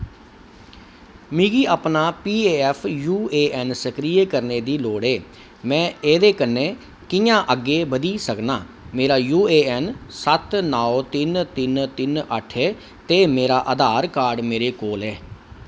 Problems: none marked